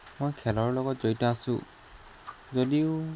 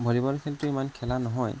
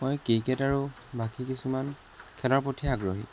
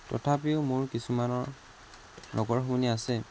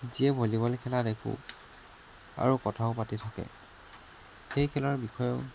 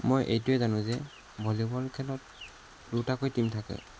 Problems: constant background noise